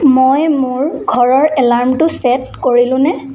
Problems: constant background noise